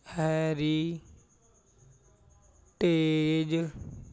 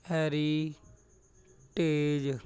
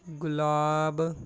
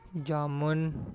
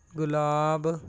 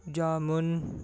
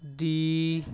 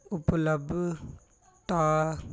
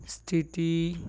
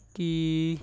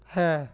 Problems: background conversations at intervals